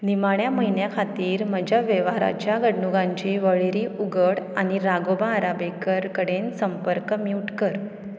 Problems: none marked